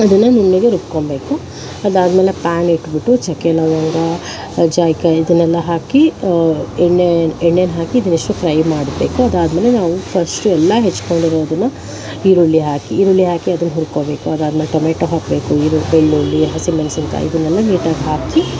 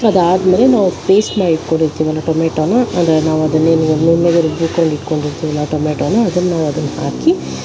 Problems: constant background noise